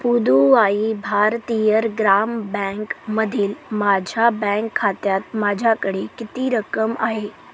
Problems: none marked